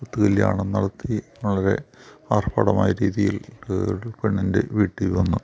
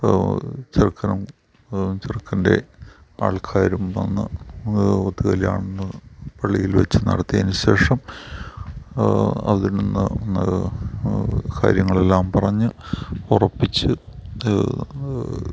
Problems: none marked